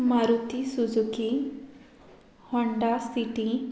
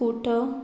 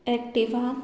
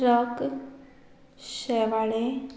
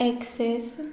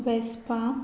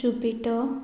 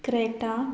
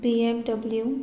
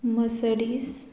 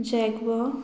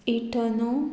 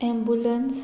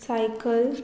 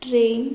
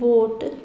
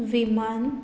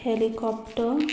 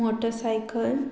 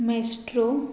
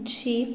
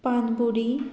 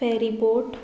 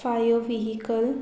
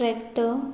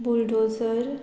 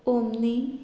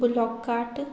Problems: background sounds at intervals